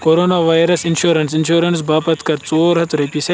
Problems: constant background noise